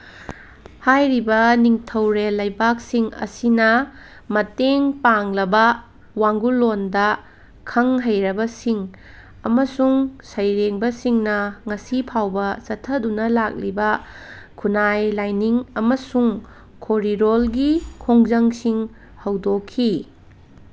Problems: none marked